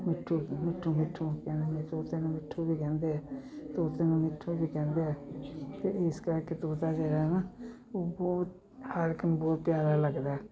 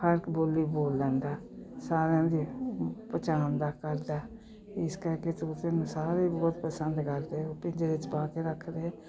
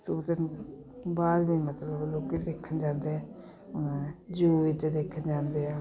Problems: continuous background conversations